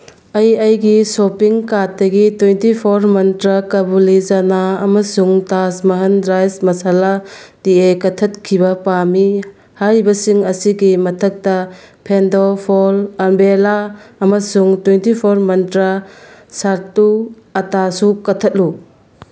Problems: none marked